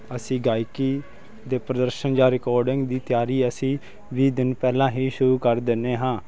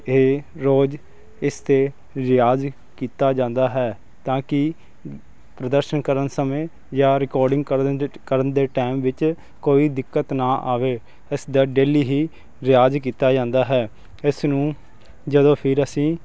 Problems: constant background noise